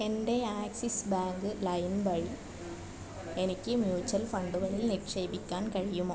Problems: low volume